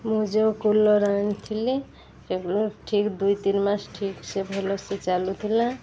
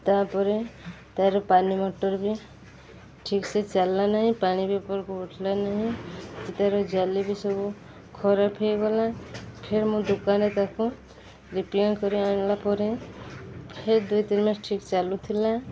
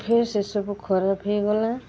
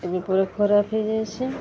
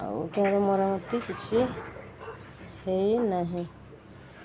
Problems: constant background noise